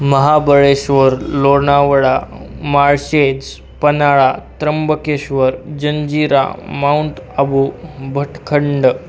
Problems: none marked